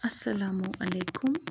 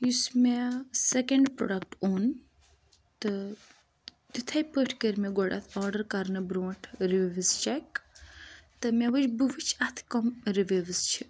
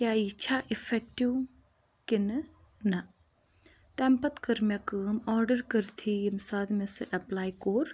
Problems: constant background noise